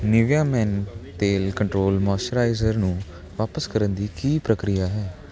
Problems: constant background noise, background conversations at intervals